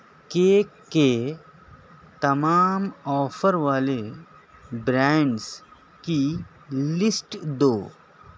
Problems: none marked